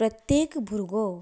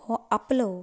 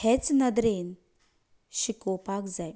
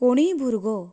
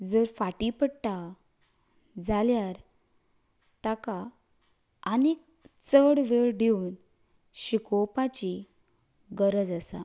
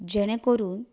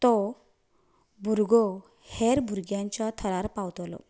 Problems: none marked